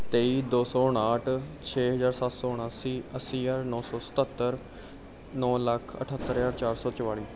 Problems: background sounds at intervals